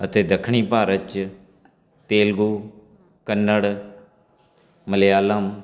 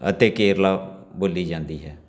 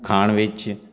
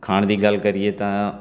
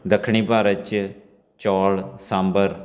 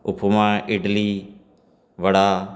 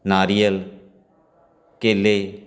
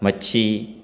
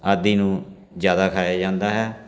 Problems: constant background noise, continuous background conversations